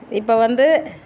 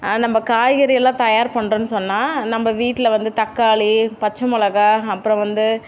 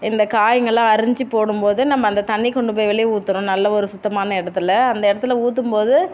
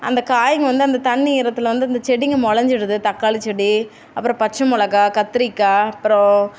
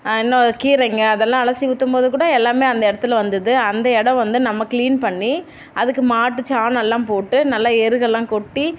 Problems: none marked